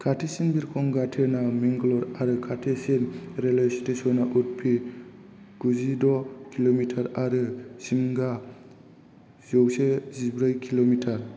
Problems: low volume